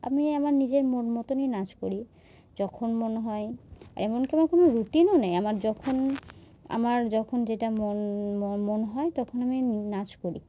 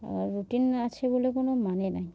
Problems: none marked